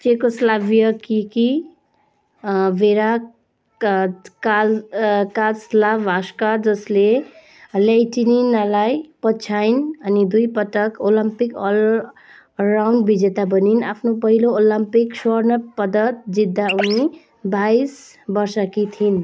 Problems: constant background noise